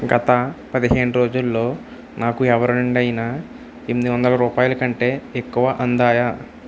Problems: constant background noise